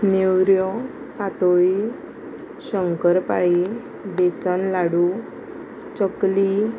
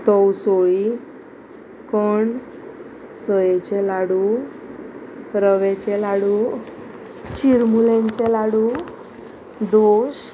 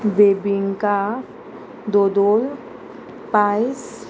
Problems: constant background noise